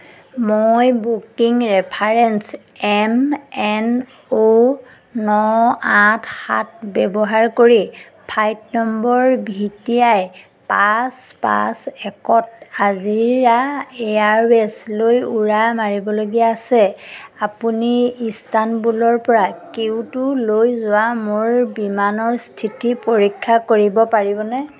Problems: background sounds at intervals